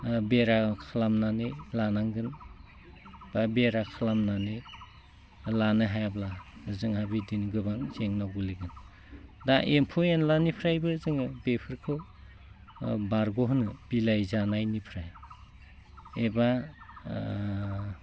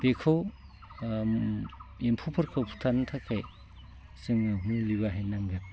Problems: low volume